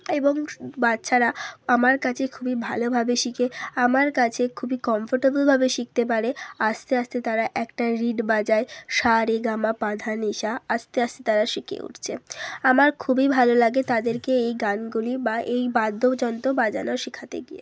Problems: background sounds at intervals